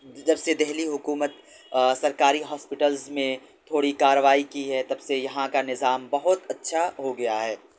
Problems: background sounds at intervals